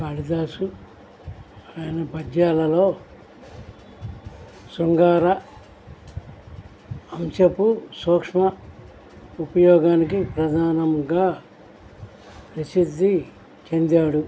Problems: constant background noise